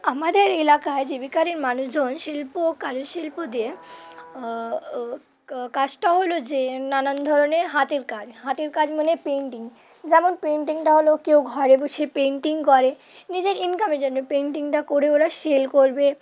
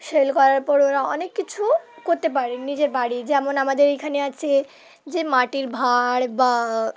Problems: none marked